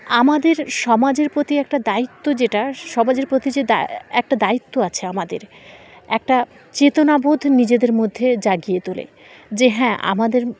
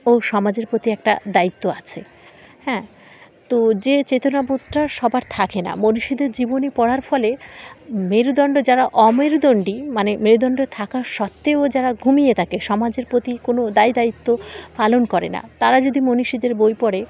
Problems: constant background noise